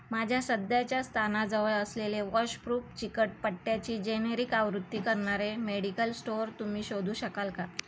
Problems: constant background noise